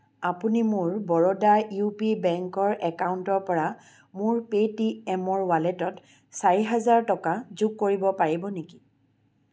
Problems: none marked